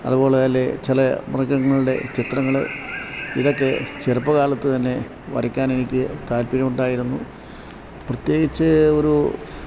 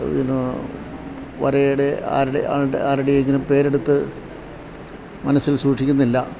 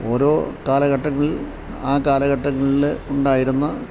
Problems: low volume